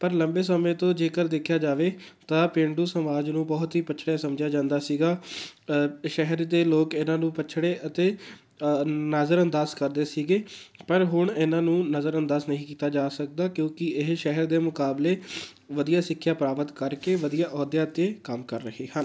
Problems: background sounds at intervals